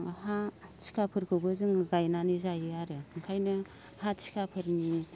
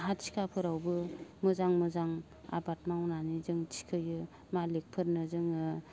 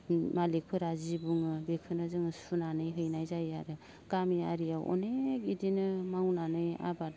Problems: low volume